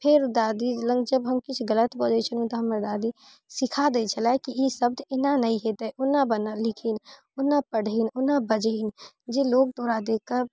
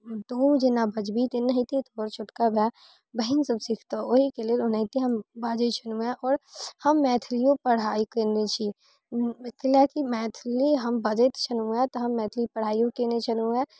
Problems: none marked